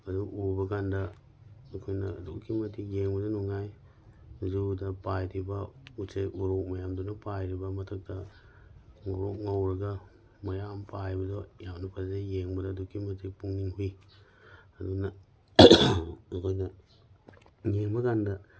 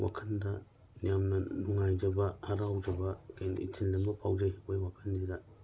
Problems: none marked